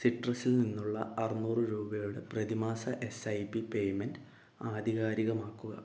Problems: low volume